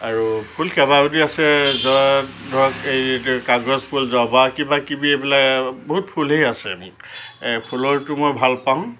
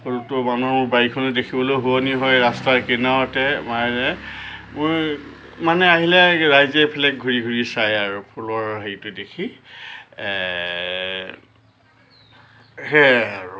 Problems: constant background noise